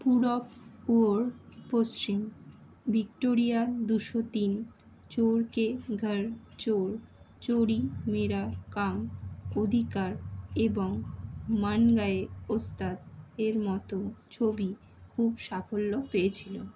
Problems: none marked